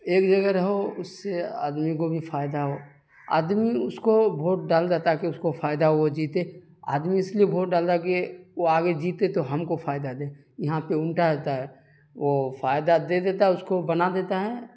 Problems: constant background noise